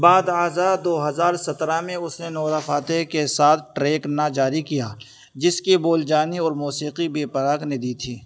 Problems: constant background noise